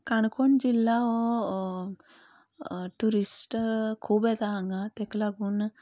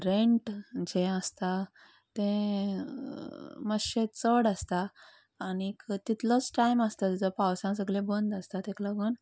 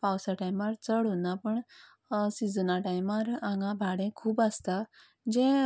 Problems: background sounds at intervals